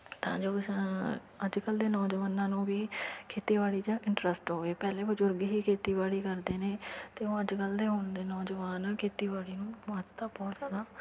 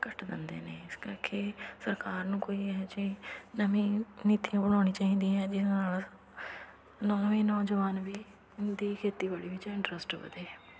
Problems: constant background noise